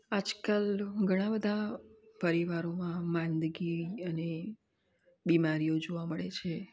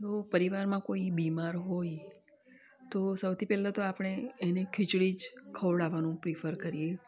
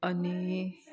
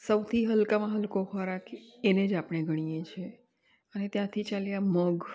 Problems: none marked